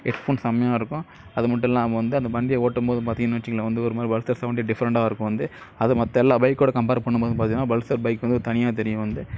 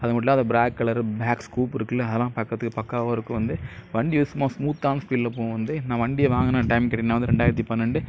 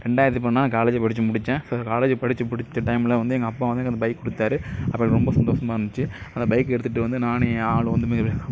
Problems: constant background noise